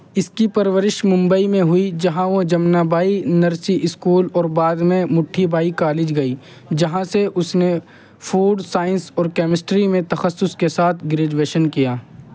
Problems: constant background noise